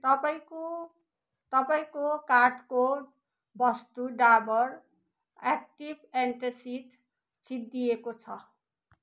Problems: none marked